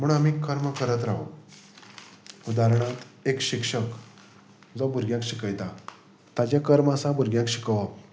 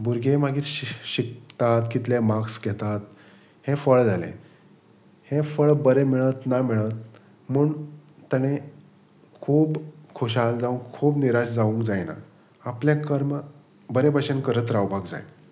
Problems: constant background noise